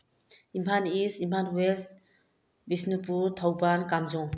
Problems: low volume